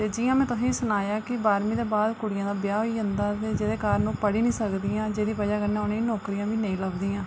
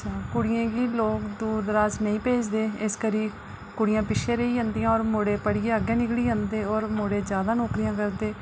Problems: low volume